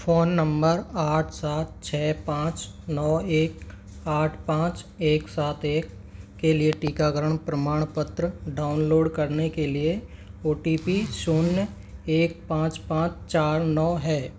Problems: none marked